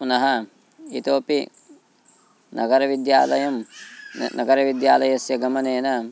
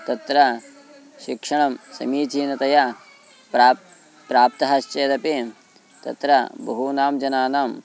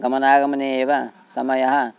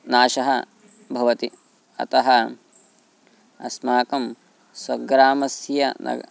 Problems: background sounds at intervals